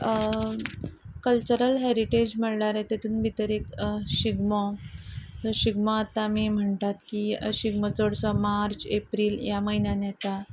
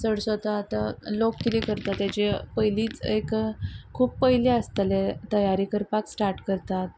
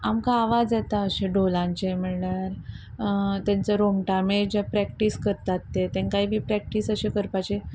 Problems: background sounds at intervals